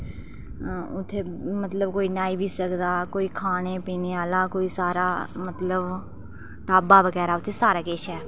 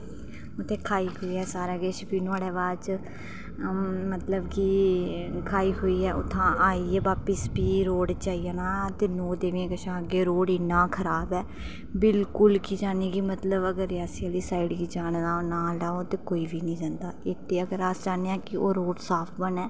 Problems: background sounds at intervals